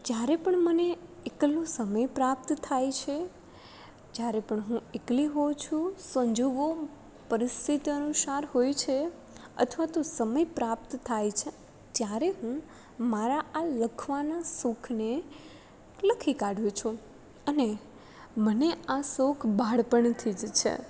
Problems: none marked